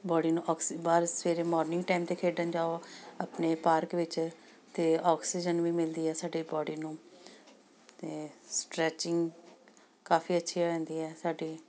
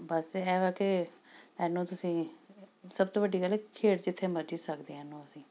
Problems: background sounds at intervals